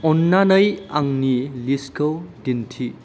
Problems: none marked